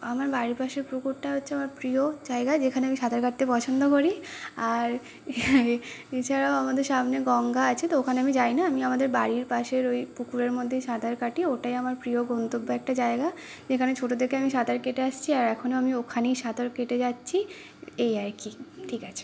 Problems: constant background noise